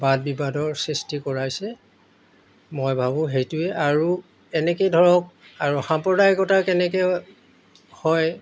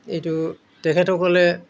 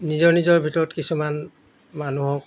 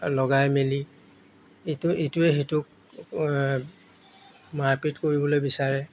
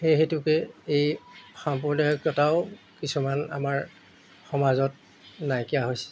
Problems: background sounds at intervals